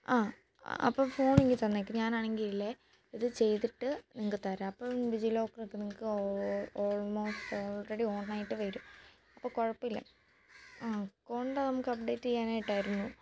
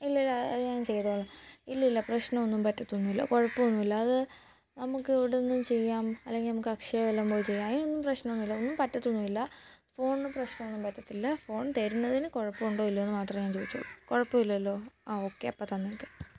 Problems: background sounds at intervals, low volume